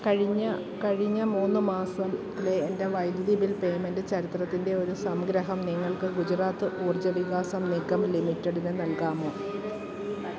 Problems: continuous background conversations